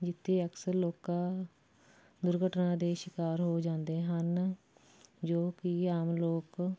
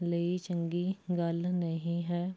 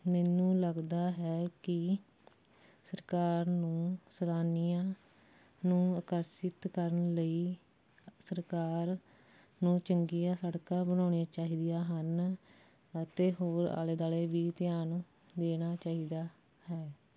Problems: none marked